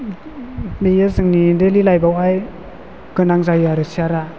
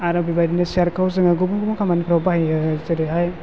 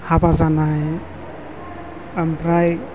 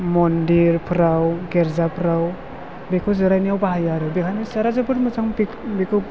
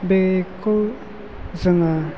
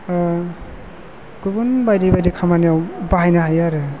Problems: constant background noise